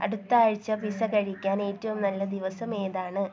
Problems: low volume